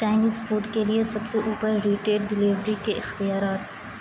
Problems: constant background noise, low volume